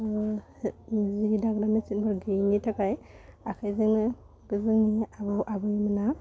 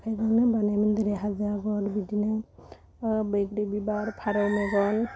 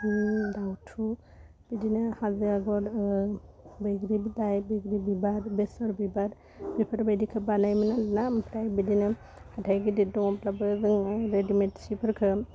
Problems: constant background noise